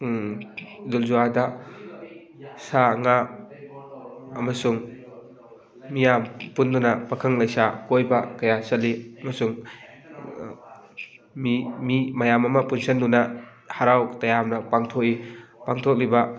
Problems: continuous background conversations